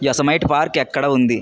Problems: none marked